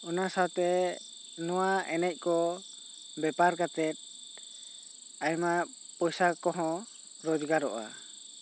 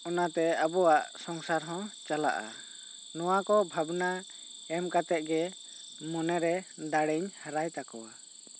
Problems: constant background noise